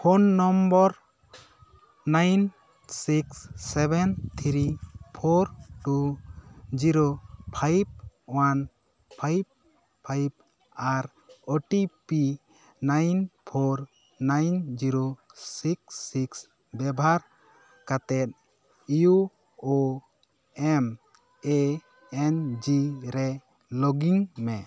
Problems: background sounds at intervals